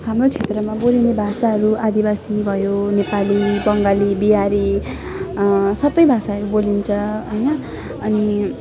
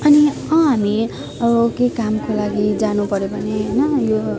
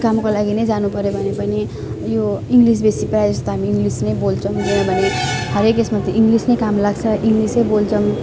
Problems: constant background noise, continuous background conversations